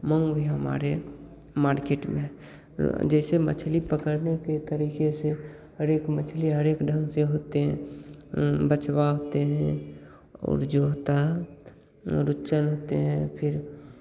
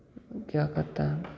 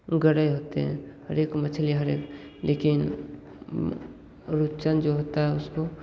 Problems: none marked